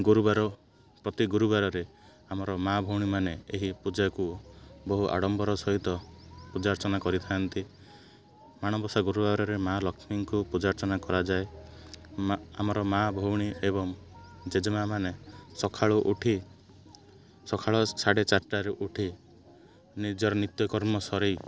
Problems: constant background noise